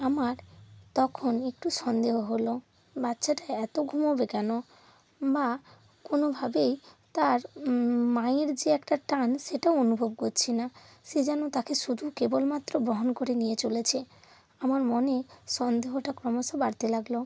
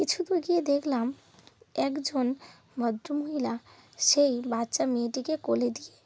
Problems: constant background noise